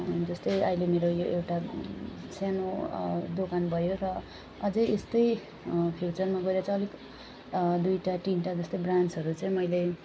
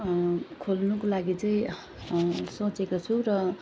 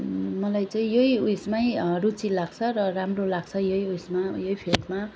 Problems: none marked